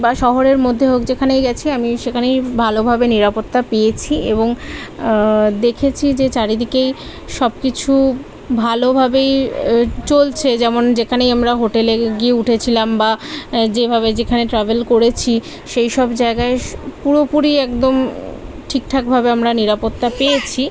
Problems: none marked